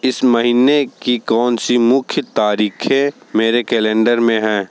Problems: constant background noise